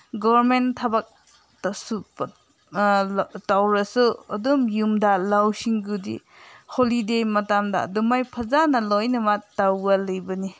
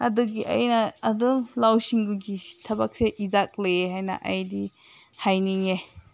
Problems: background sounds at intervals